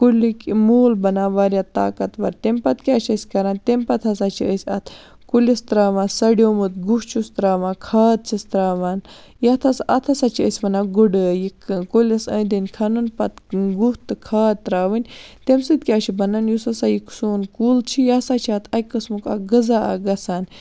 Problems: none marked